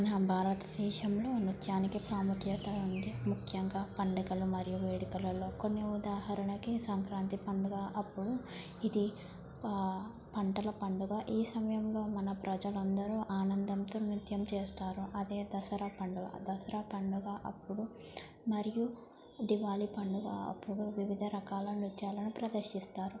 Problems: low volume